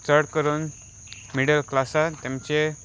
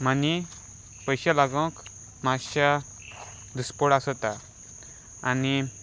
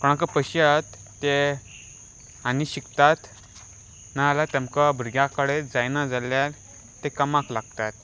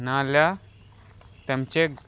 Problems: none marked